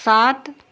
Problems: none marked